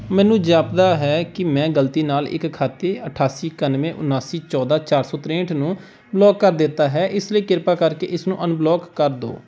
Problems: background sounds at intervals